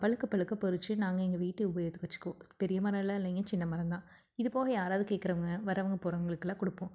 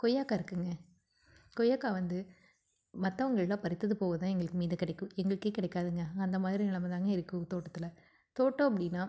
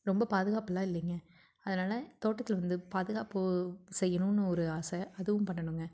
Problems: none marked